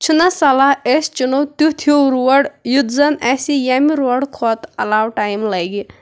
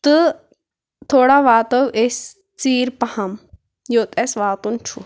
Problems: background sounds at intervals